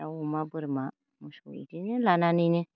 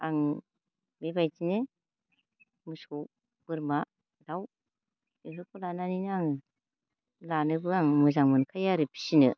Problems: low volume